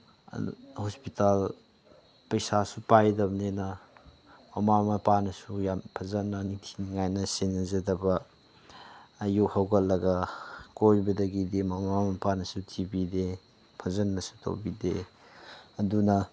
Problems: background sounds at intervals